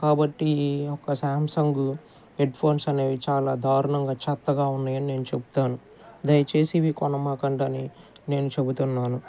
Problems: background conversations at intervals